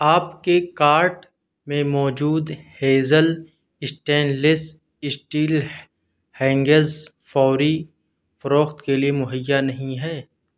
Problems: none marked